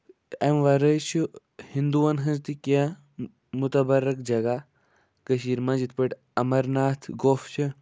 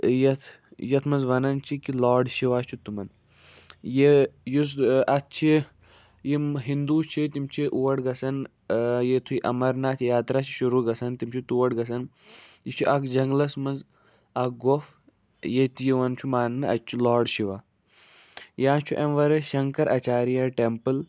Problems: none marked